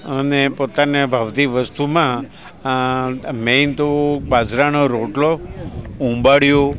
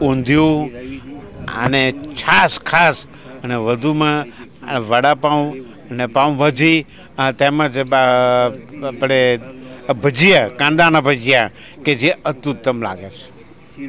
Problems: constant background noise, continuous background conversations